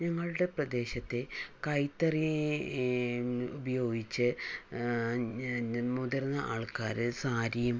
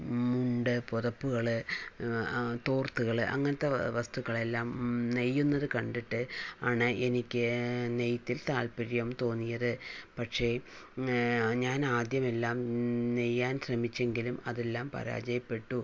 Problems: low volume